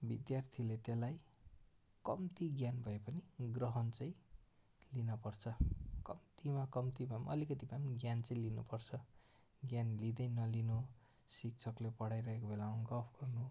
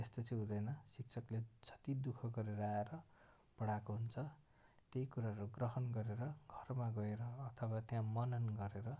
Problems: background sounds at intervals